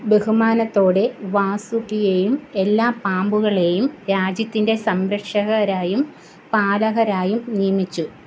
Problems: constant background noise